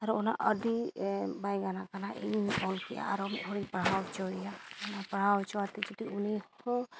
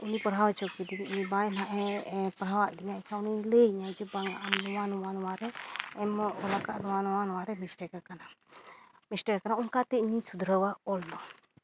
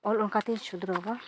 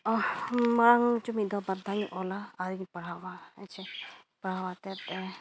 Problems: none marked